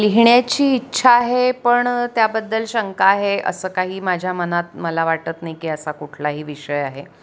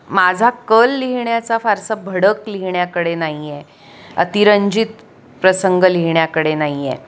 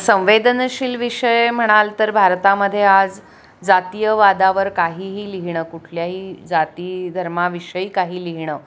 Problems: constant background noise, continuous background conversations